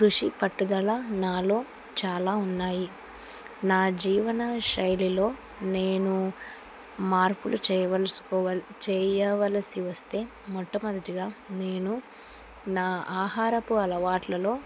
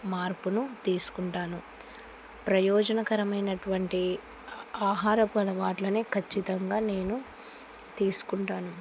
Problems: constant background noise